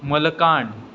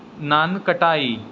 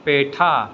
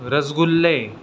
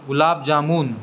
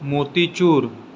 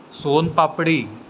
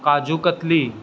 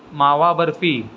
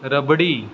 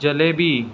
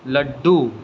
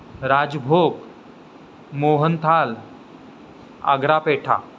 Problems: constant background noise